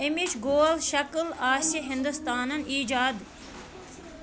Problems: constant background noise